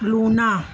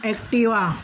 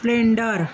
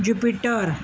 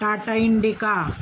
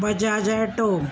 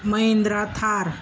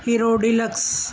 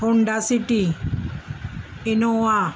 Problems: none marked